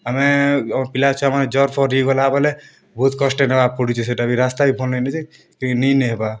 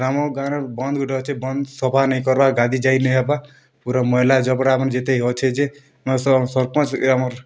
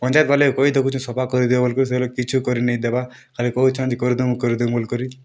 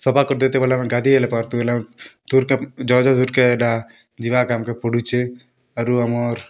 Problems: none marked